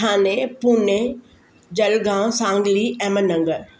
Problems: constant background noise